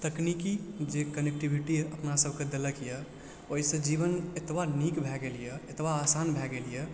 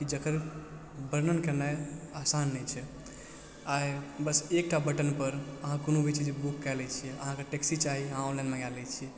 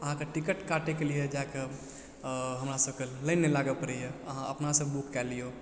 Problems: low volume